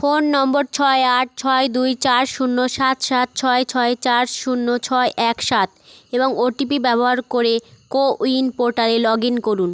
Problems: constant background noise